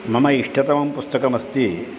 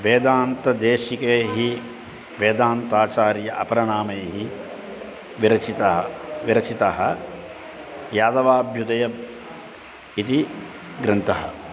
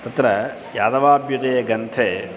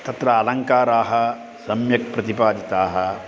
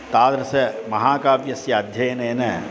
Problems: constant background noise